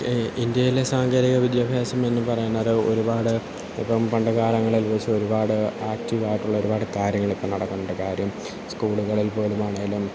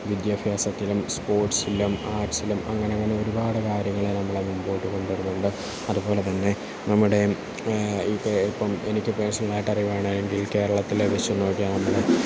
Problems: constant background noise, low volume